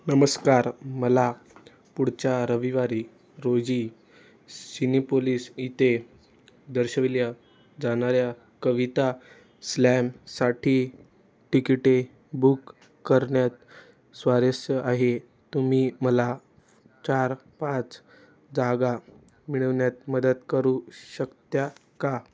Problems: none marked